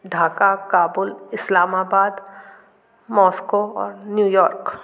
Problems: constant background noise, background conversations at intervals